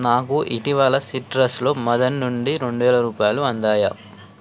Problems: constant background noise